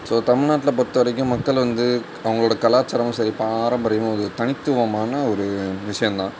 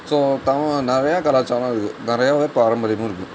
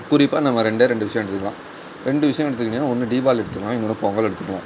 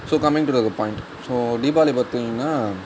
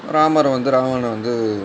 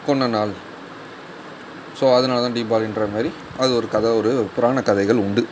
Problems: constant background noise